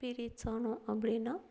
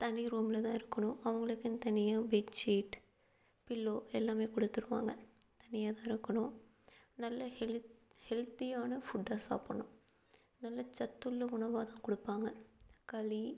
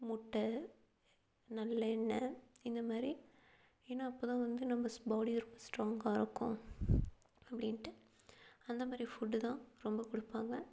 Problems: none marked